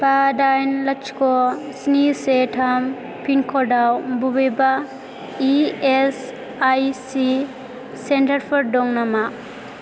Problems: constant background noise